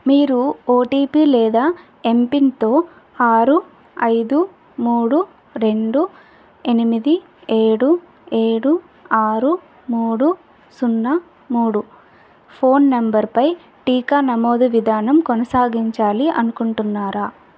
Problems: none marked